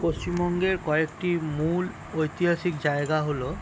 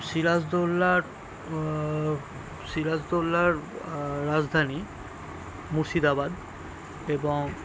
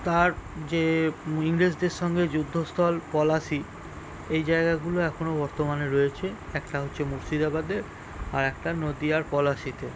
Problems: constant background noise